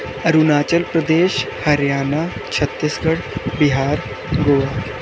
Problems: constant background noise, low volume